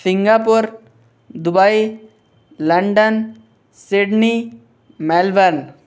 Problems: none marked